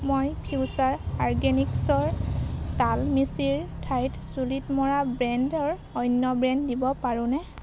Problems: constant background noise